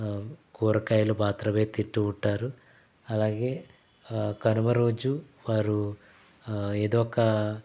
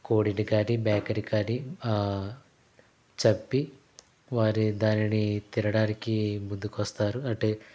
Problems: background sounds at intervals